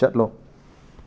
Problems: none marked